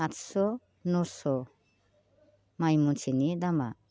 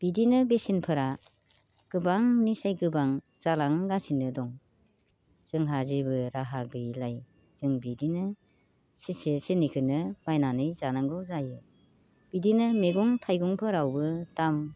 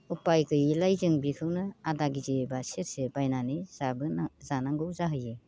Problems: constant background noise